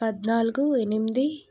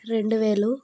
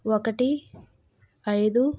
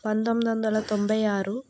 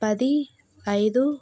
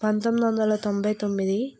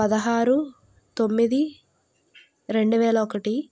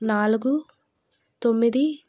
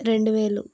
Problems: none marked